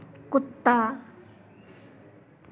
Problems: constant background noise, continuous background conversations